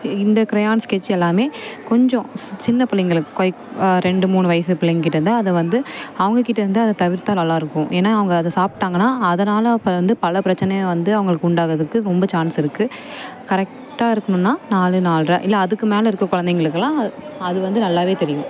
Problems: constant background noise